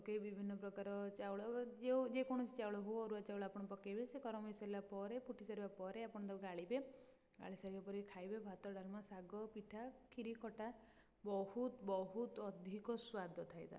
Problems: low volume